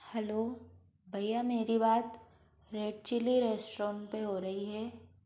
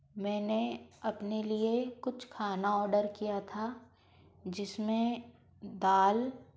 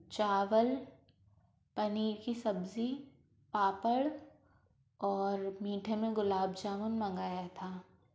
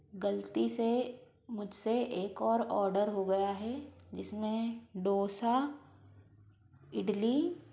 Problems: constant background noise